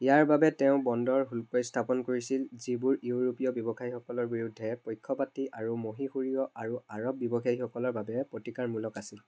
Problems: background sounds at intervals